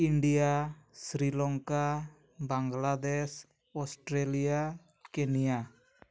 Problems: none marked